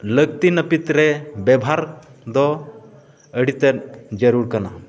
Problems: constant background noise, continuous background conversations